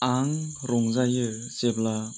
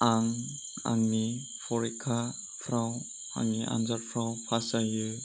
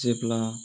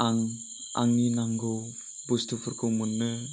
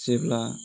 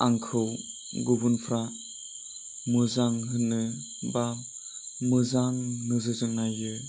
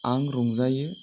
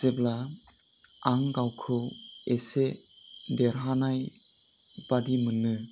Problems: constant background noise